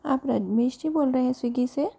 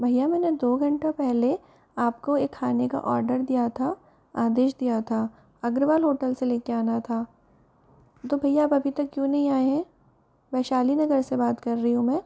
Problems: background sounds at intervals